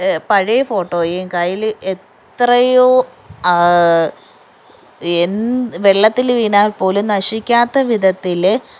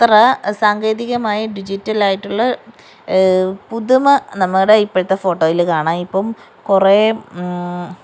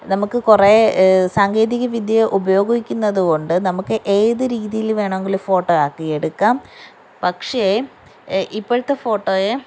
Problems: background sounds at intervals